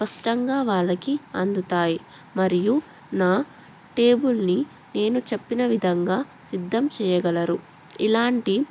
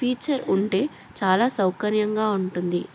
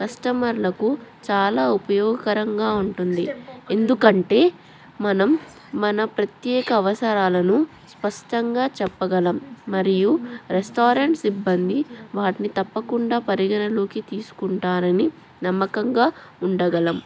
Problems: background conversations at intervals